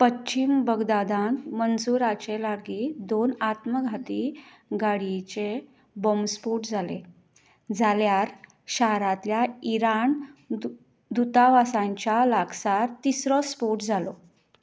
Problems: none marked